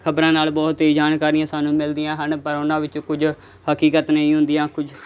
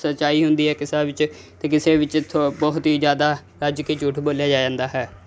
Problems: none marked